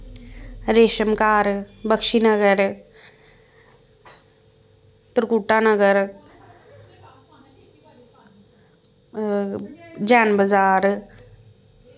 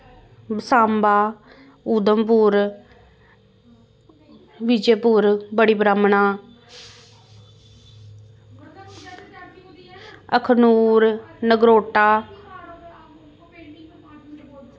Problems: constant background noise